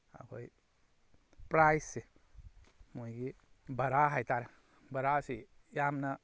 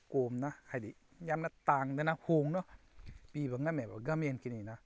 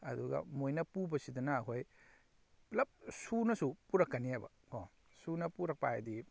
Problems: none marked